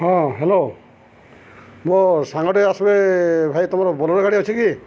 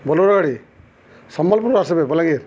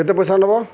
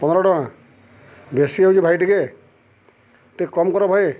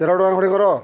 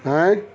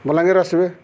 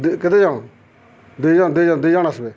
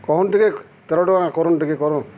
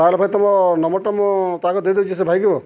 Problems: none marked